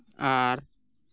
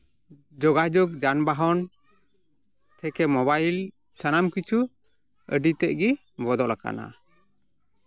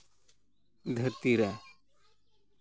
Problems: background sounds at intervals, background conversations at intervals